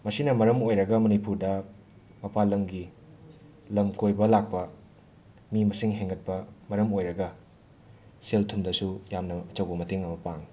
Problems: background sounds at intervals, background conversations at intervals